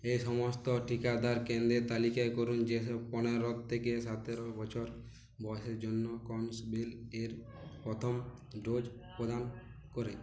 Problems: constant background noise, background conversations at intervals